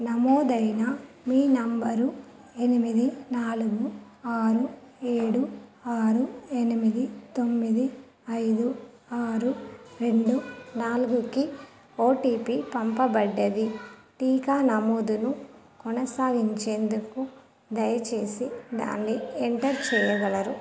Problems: background conversations at intervals